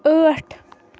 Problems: constant background noise